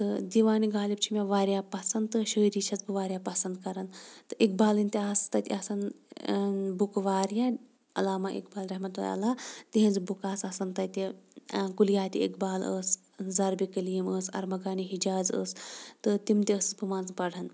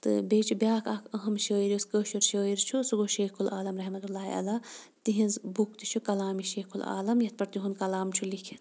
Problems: background sounds at intervals